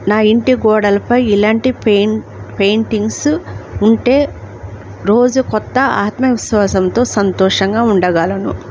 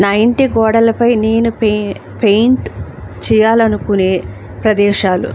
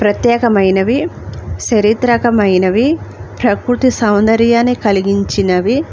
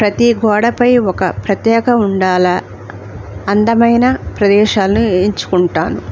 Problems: none marked